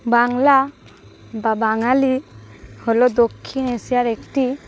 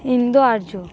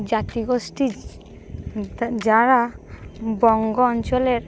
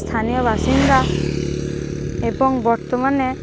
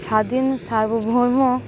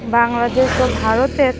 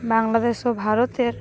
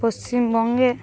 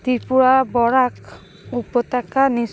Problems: constant background noise